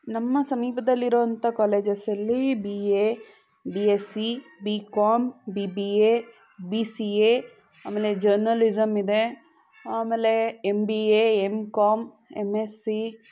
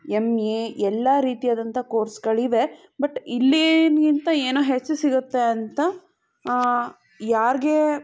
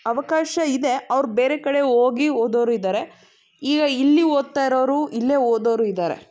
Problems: background sounds at intervals, background conversations at intervals